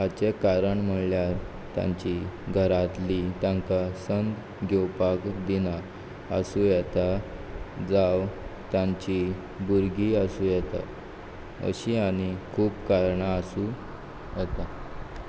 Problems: background sounds at intervals